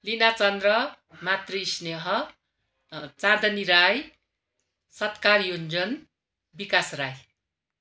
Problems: none marked